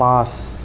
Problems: constant background noise